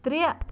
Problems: constant background noise